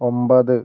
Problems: none marked